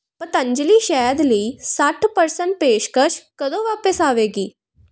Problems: constant background noise